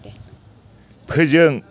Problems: none marked